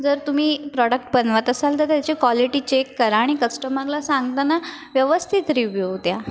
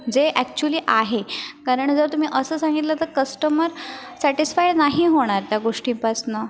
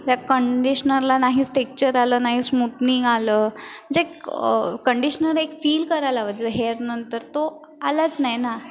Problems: constant background noise, background conversations at intervals